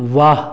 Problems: background sounds at intervals, continuous background conversations